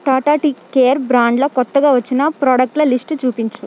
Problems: constant background noise